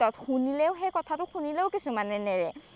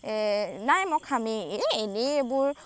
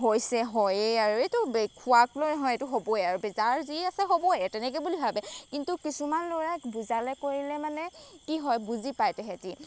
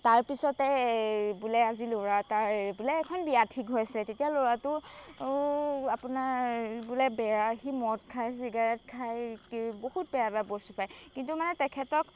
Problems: background sounds at intervals